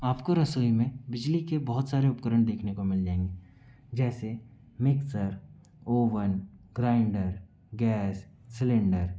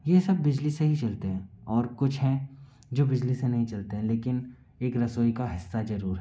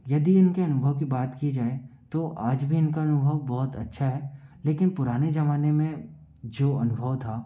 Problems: background sounds at intervals